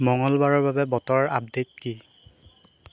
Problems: constant background noise